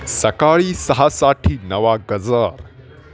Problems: constant background noise, continuous background conversations